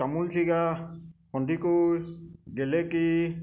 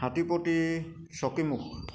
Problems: constant background noise